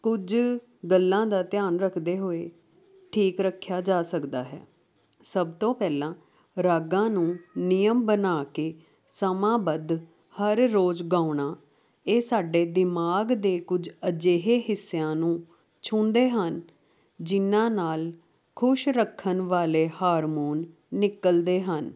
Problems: constant background noise